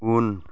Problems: none marked